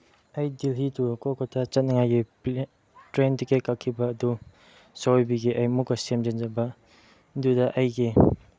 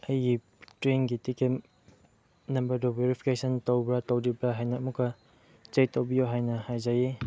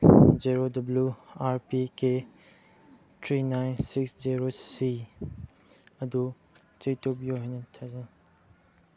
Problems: low volume